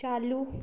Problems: low volume